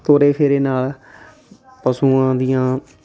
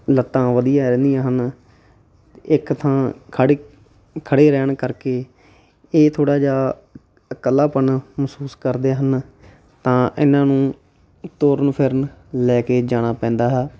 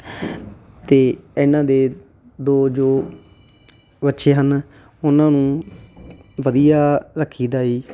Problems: constant background noise